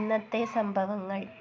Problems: low volume